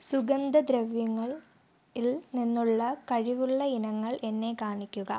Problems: low volume